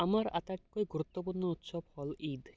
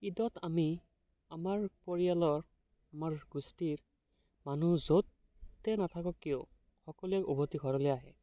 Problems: background sounds at intervals